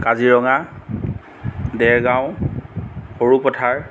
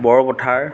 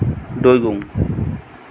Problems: background sounds at intervals